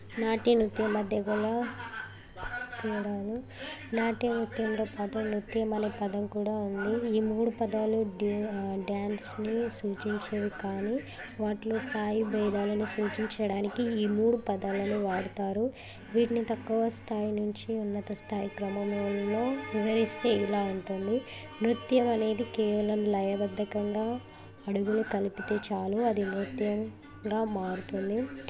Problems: constant background noise, continuous background conversations